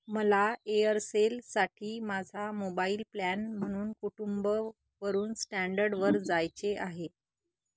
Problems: none marked